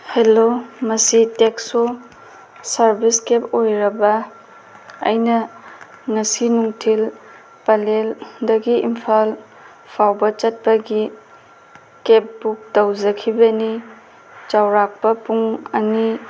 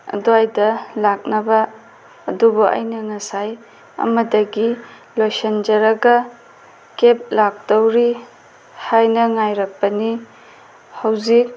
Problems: constant background noise